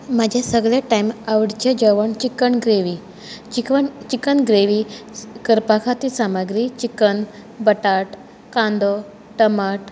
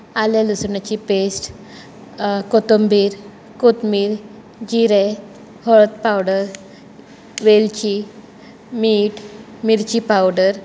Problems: none marked